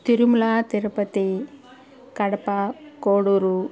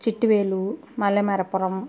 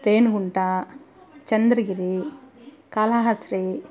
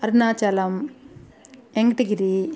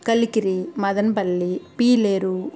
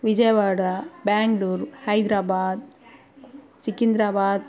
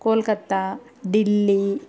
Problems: none marked